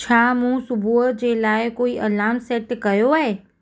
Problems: background sounds at intervals